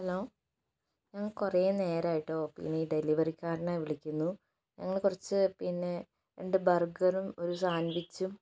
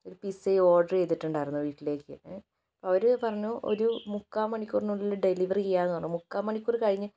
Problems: low volume